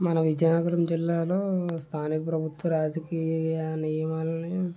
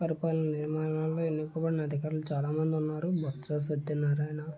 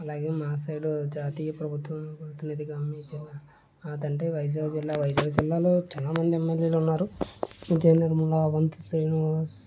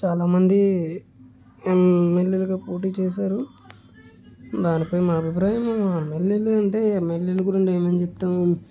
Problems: low volume